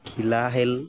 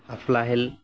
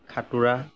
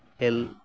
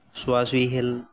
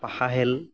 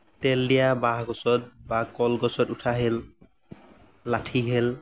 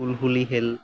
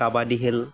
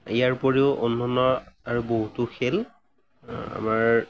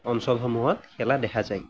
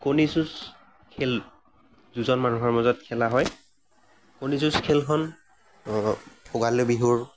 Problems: none marked